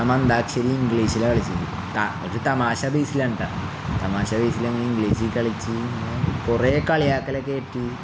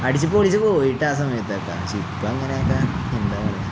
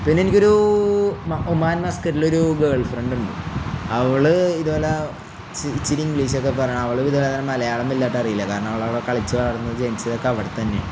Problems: none marked